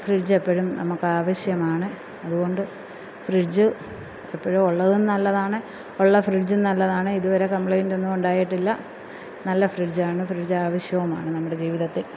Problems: none marked